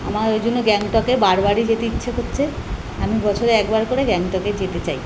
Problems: constant background noise